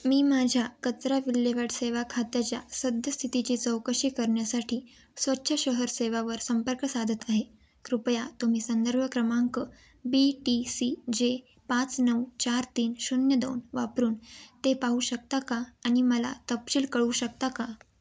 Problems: constant background noise